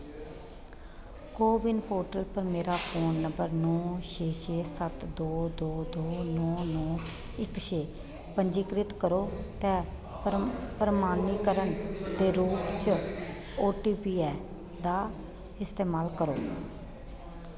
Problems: constant background noise